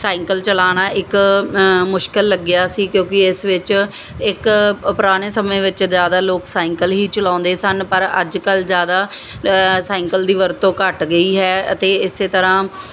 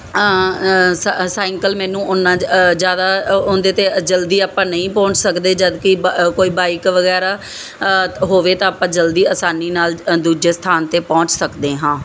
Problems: none marked